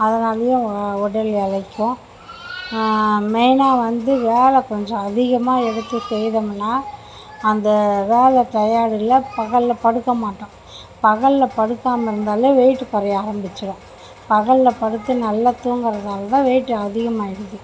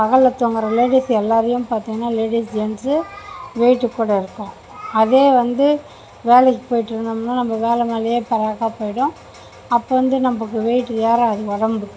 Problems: constant background noise